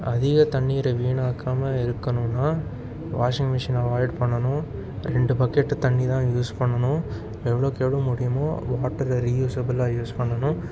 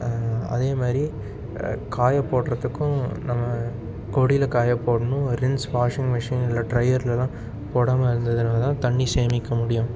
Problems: constant background noise